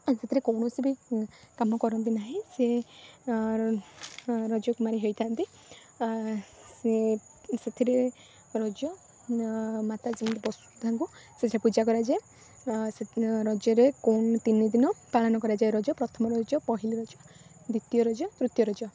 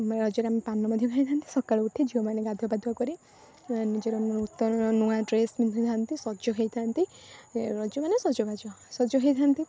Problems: constant background noise